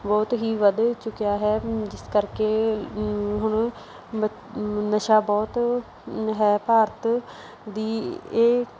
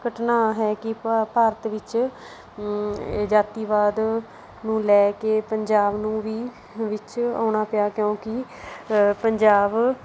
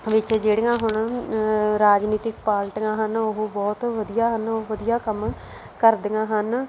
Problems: background sounds at intervals